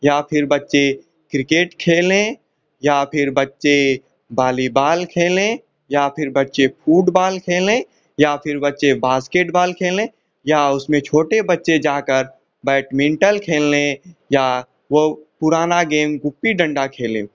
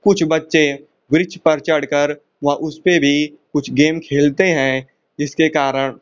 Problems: constant background noise